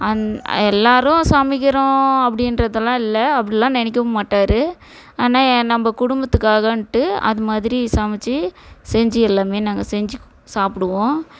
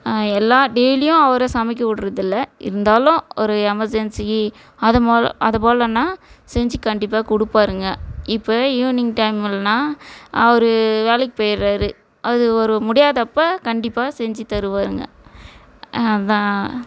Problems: background conversations at intervals